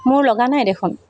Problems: constant background noise